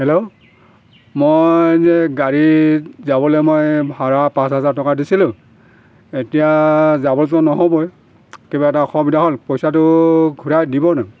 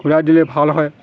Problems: constant background noise